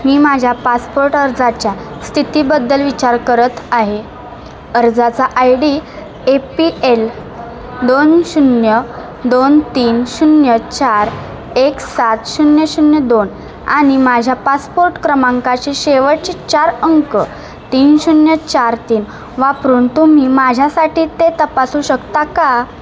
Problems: constant background noise, background conversations at intervals